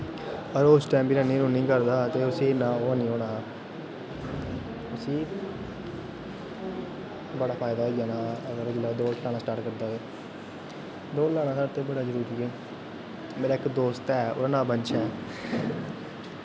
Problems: constant background noise